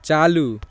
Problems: none marked